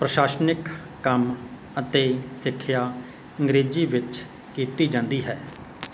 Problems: constant background noise